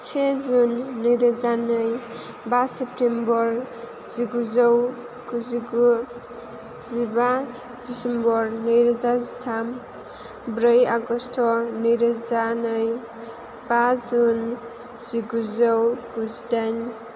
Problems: constant background noise